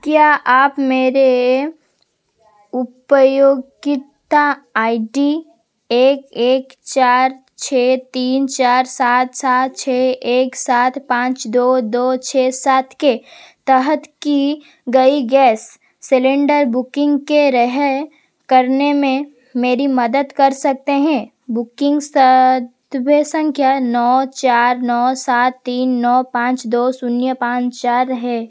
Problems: constant background noise